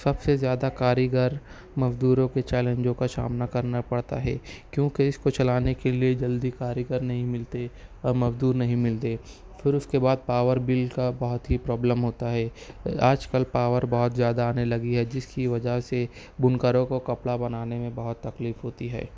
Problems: none marked